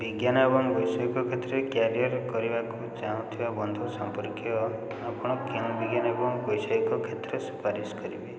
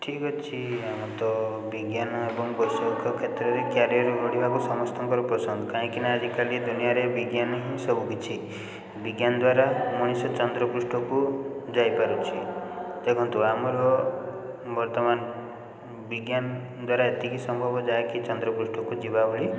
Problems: constant background noise